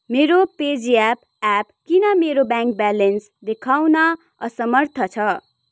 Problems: none marked